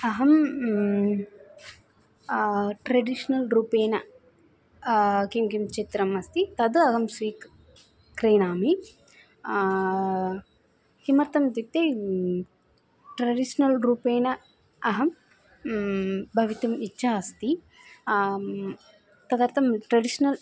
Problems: constant background noise, continuous background conversations